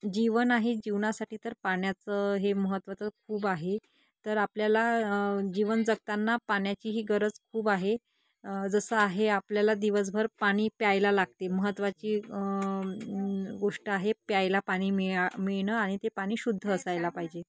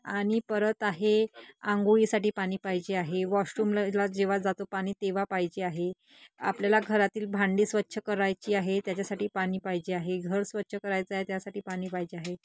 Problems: none marked